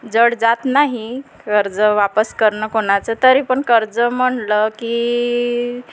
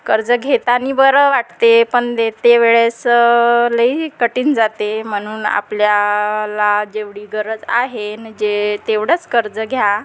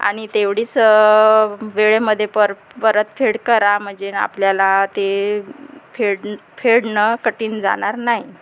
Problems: constant background noise